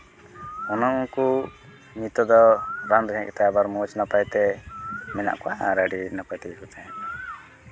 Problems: none marked